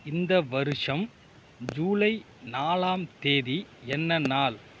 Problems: background sounds at intervals